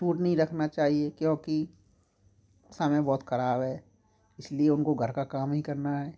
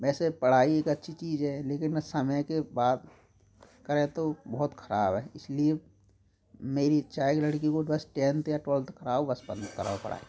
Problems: background sounds at intervals, background conversations at intervals